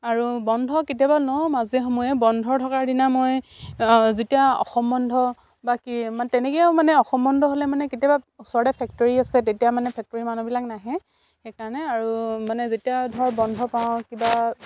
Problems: constant background noise